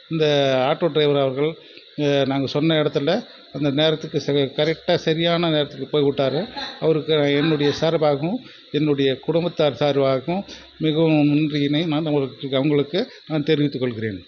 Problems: background sounds at intervals